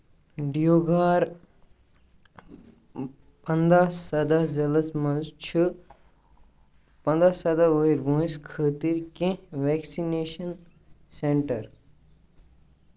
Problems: constant background noise